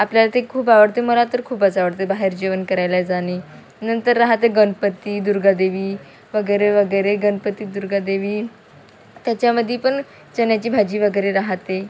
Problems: none marked